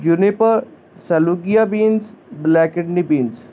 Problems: constant background noise